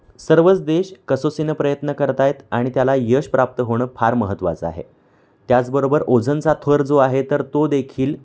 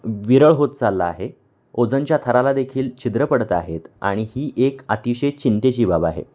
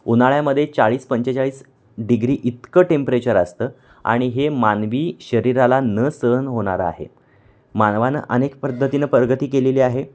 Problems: constant background noise, background conversations at intervals